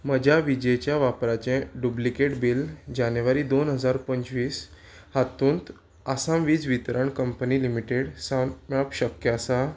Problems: none marked